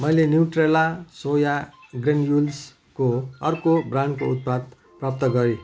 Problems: background conversations at intervals